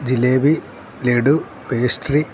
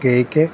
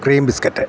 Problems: constant background noise